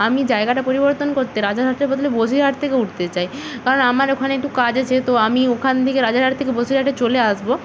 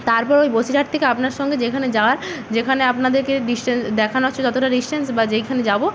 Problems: constant background noise